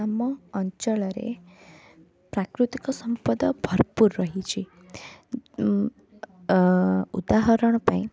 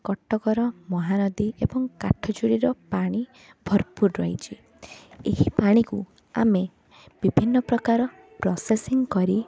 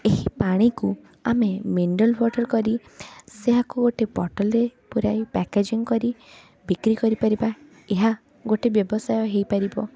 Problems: continuous background conversations